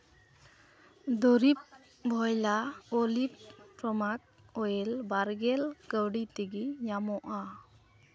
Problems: background sounds at intervals